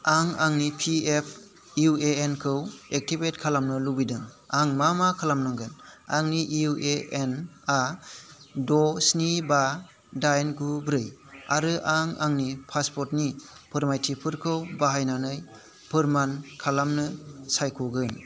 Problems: constant background noise